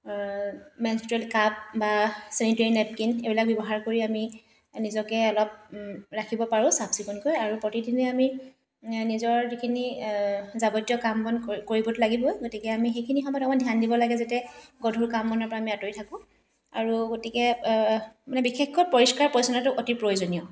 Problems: none marked